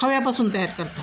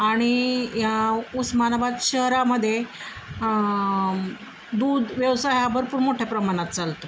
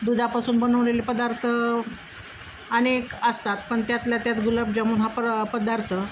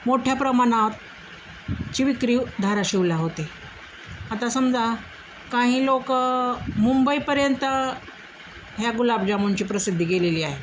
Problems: constant background noise, background conversations at intervals